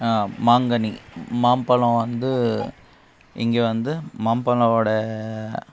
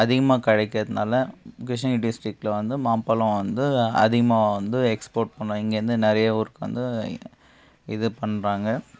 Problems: background sounds at intervals